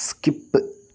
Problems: none marked